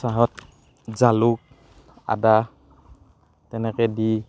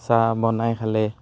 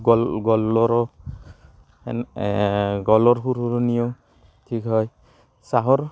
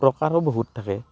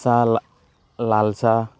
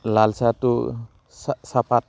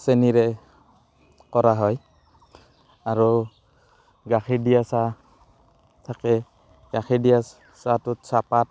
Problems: background sounds at intervals